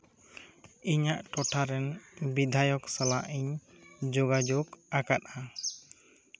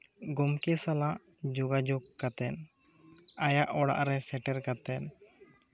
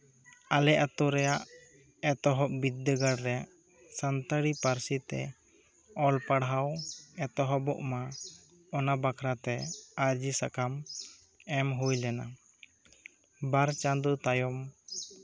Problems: background conversations at intervals